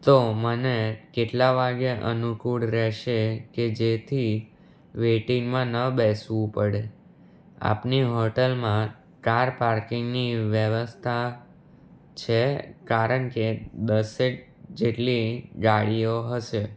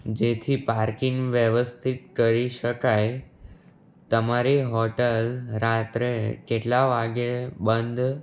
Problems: none marked